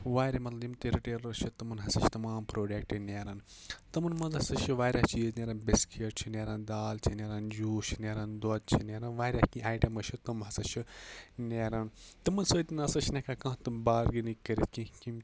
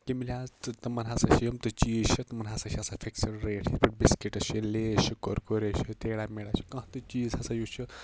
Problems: none marked